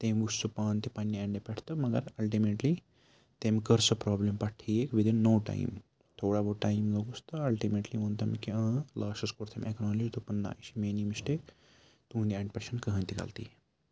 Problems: background sounds at intervals, low volume